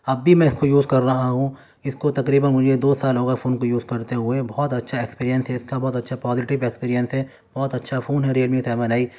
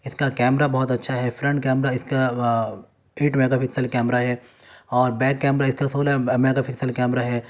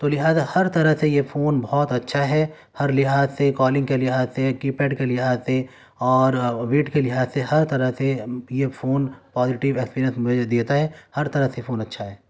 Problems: none marked